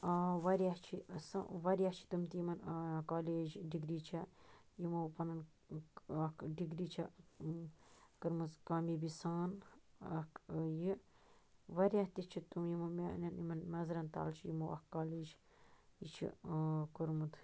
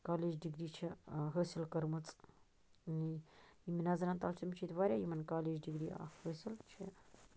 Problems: none marked